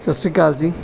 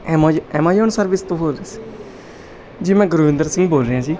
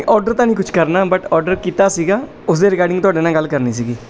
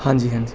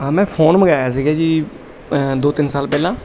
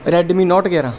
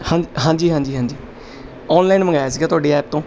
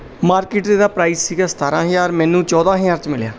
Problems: none marked